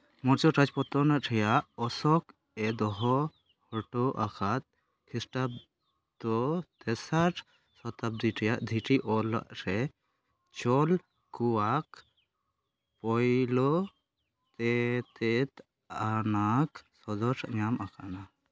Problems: background sounds at intervals, low volume